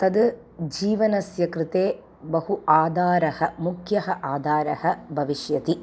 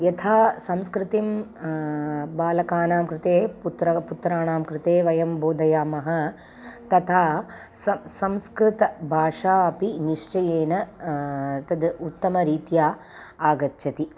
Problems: constant background noise